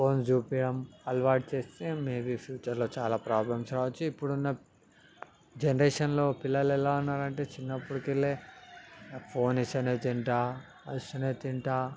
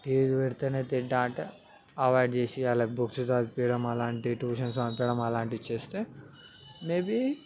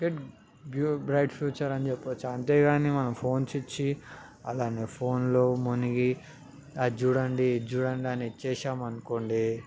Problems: background conversations at intervals